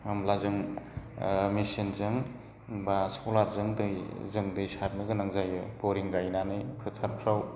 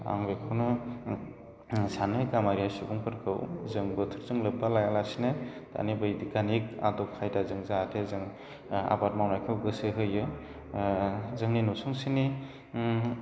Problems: constant background noise